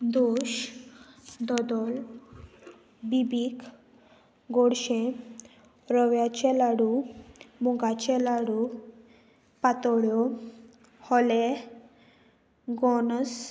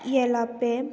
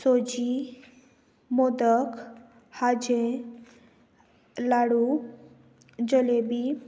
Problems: none marked